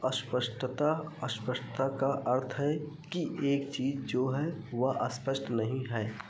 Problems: echo